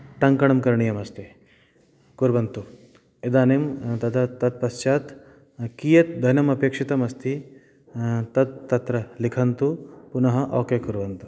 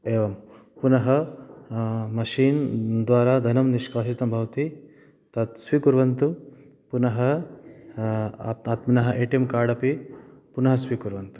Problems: background sounds at intervals